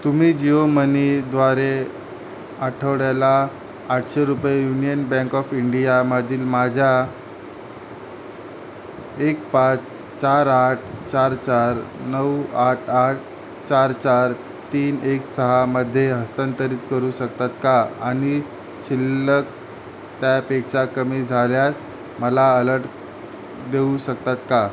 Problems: constant background noise